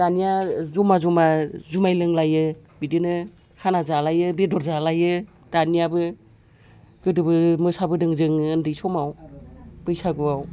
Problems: background conversations at intervals